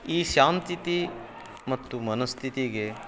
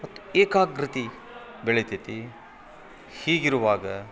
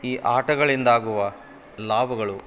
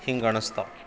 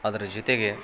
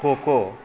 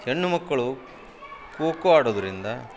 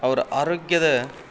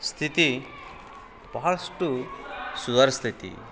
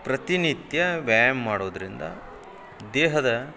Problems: none marked